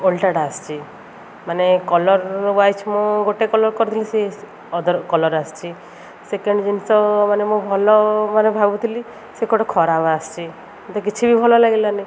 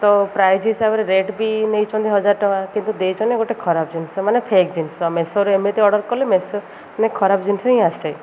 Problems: none marked